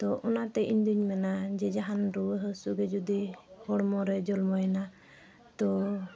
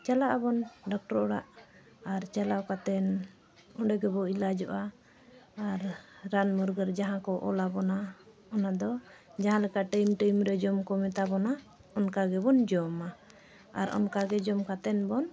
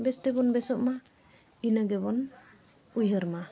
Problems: none marked